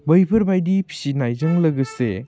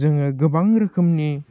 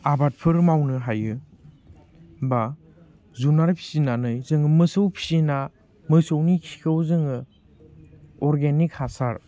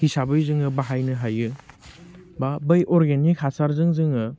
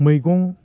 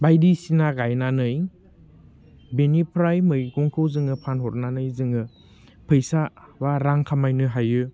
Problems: none marked